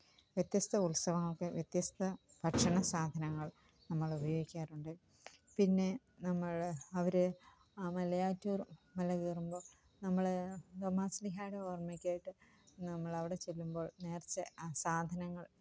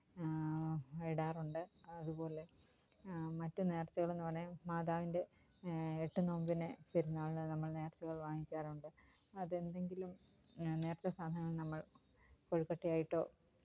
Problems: none marked